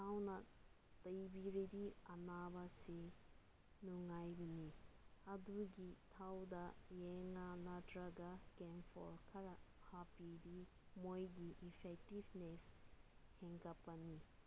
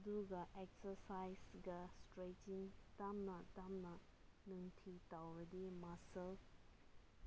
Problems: low volume